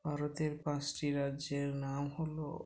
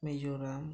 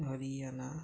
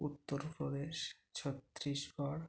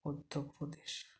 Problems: none marked